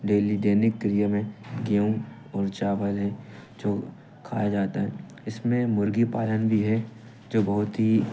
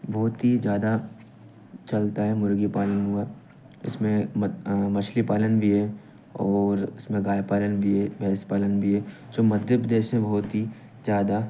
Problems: none marked